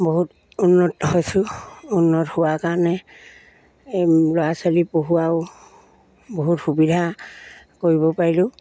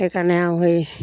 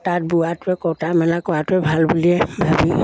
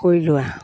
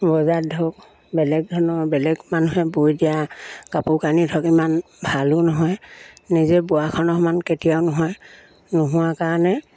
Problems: none marked